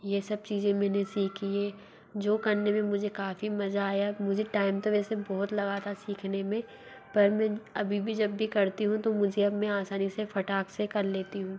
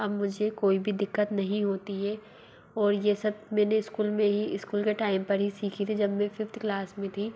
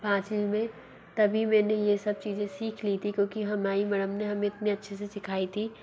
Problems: low volume